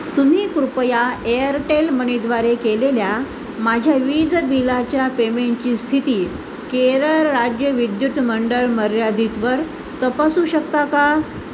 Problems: constant background noise